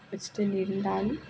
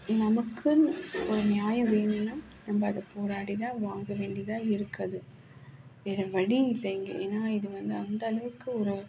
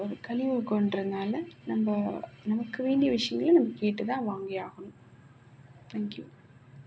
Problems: constant background noise